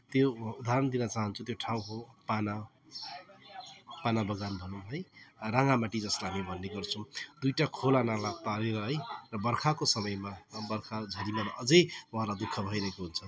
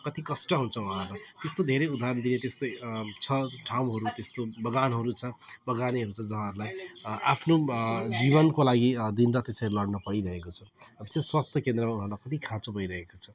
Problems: constant background noise